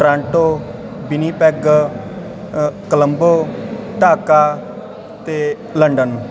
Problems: constant background noise